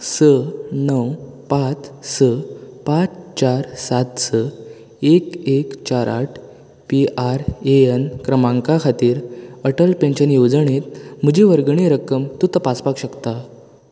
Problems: constant background noise